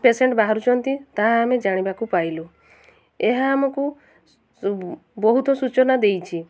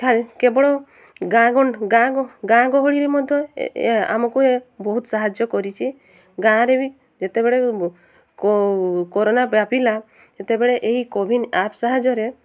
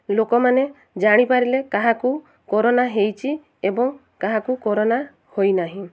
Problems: none marked